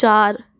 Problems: none marked